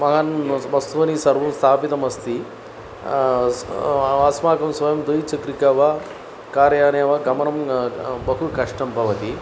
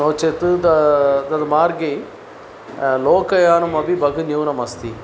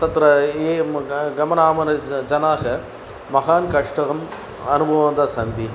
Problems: constant background noise